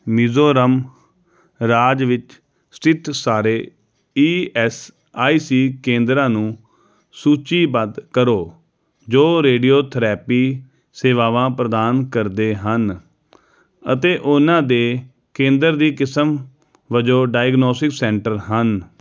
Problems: none marked